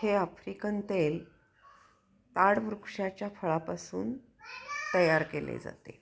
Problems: background conversations at intervals